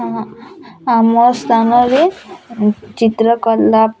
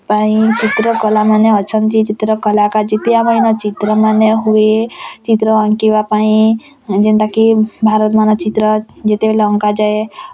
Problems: constant background noise, continuous background conversations